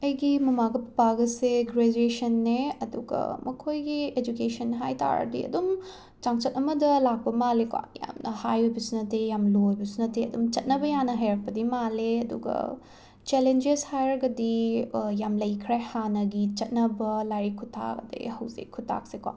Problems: constant background noise